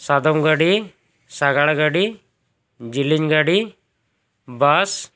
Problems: none marked